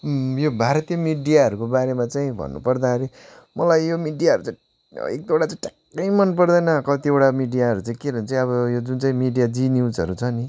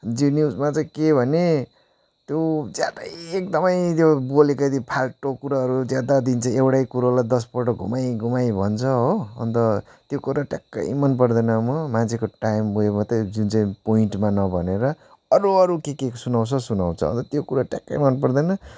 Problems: background sounds at intervals